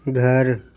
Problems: constant background noise